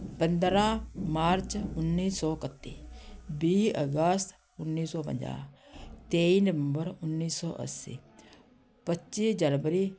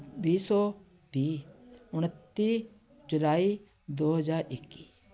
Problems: none marked